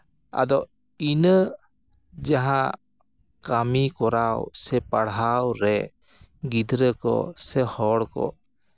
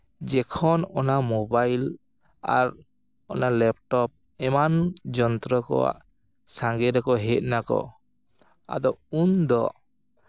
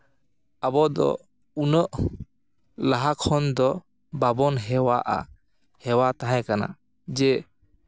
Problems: background sounds at intervals